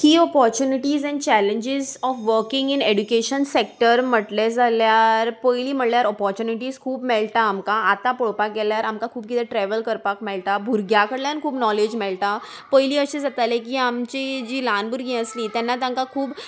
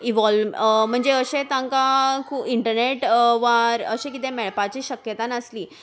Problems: background sounds at intervals